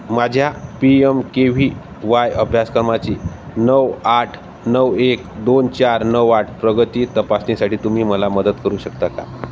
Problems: constant background noise